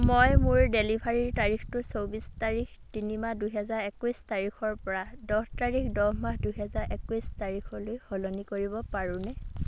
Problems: background sounds at intervals